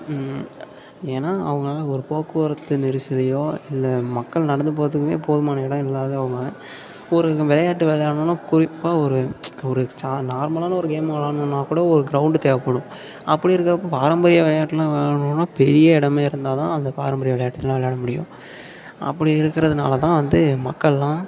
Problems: constant background noise, low volume